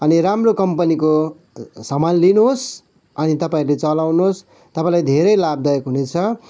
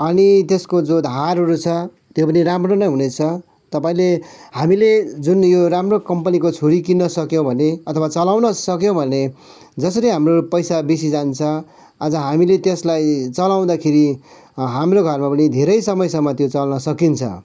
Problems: background sounds at intervals